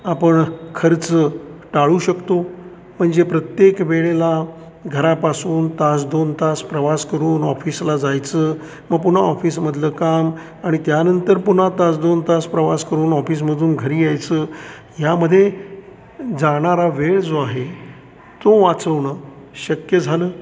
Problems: constant background noise, continuous background conversations